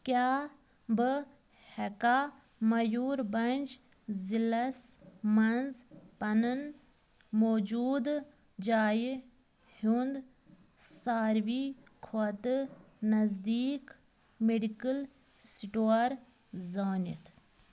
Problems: none marked